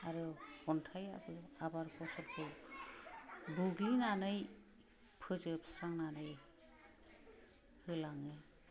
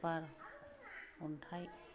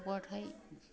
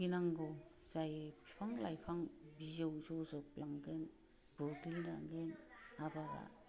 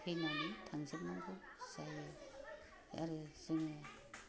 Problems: low volume